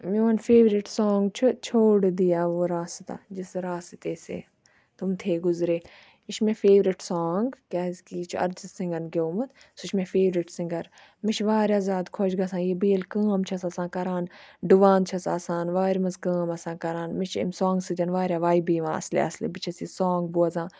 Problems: background sounds at intervals